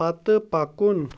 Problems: background sounds at intervals